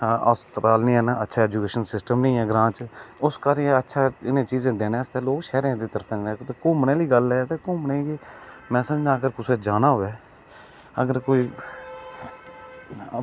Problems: none marked